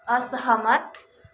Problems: none marked